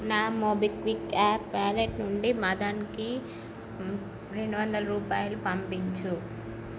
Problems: none marked